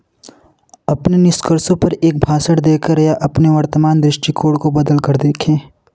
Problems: none marked